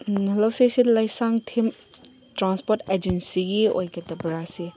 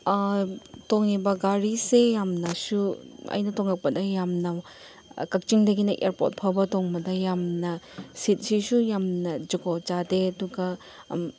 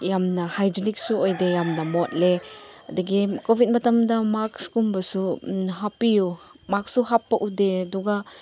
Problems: background sounds at intervals